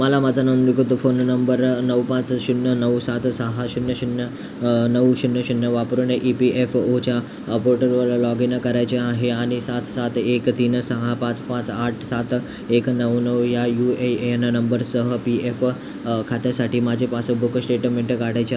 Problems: constant background noise